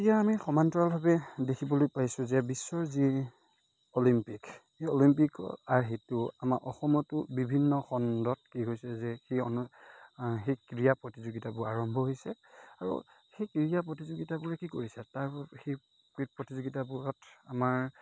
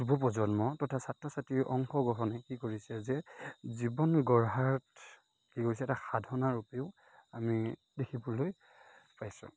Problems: none marked